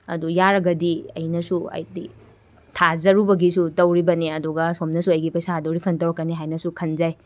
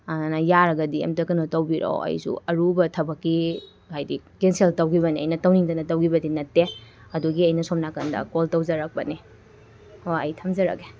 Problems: background sounds at intervals